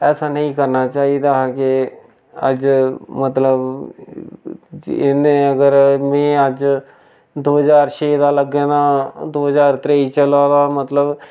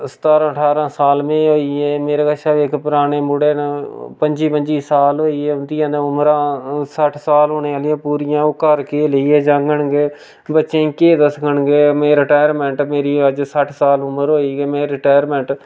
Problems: none marked